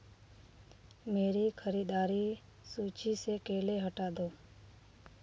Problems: background sounds at intervals